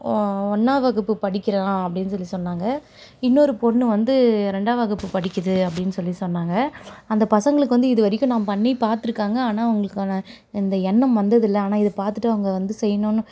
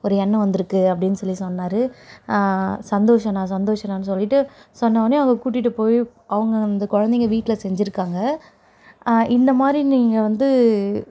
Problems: none marked